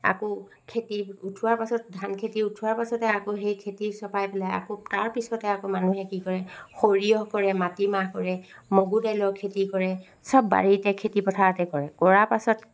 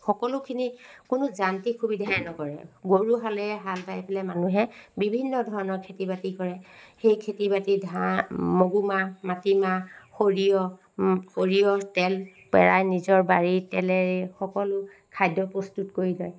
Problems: background sounds at intervals